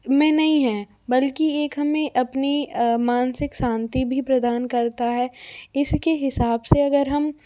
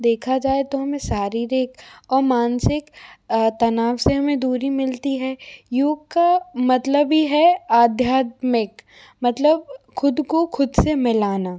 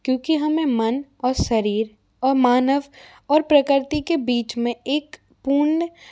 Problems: constant background noise